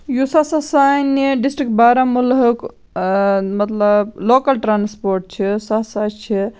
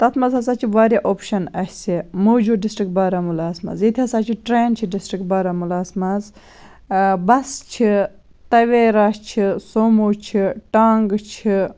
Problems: none marked